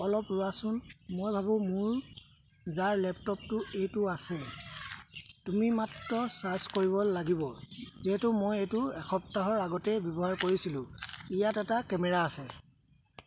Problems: none marked